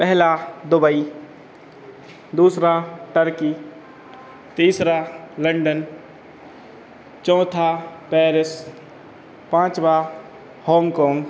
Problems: constant background noise, background conversations at intervals